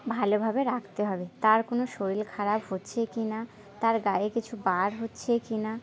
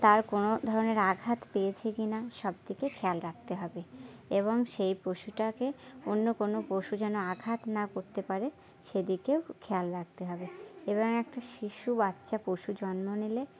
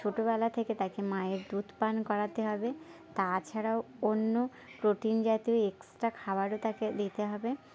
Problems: background sounds at intervals, continuous background conversations